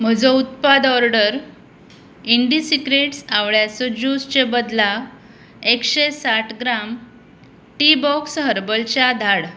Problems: constant background noise